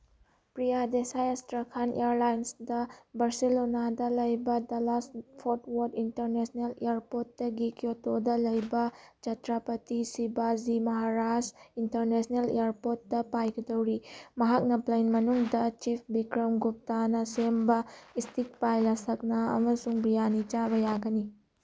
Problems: none marked